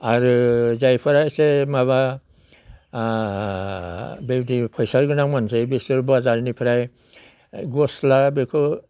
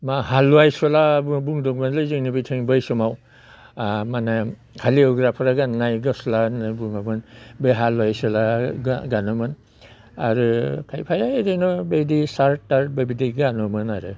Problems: none marked